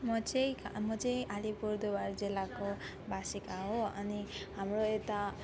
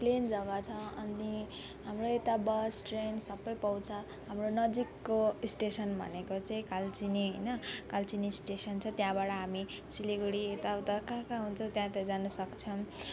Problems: none marked